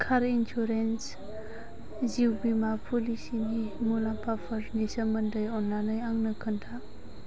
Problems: constant background noise